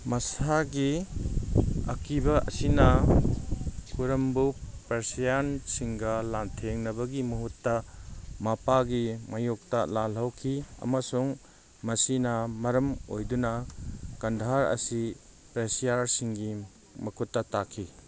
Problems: background sounds at intervals